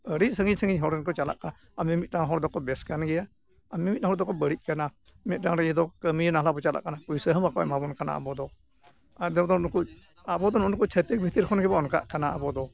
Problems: none marked